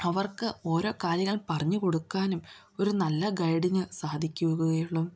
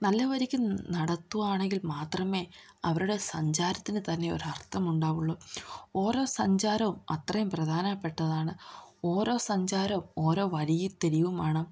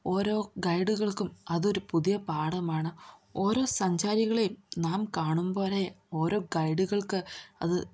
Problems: low volume